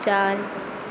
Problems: constant background noise